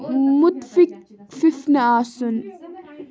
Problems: background sounds at intervals